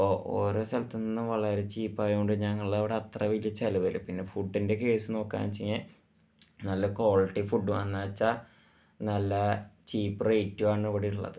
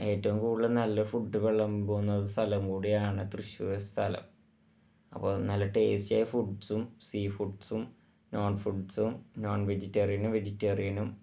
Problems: low volume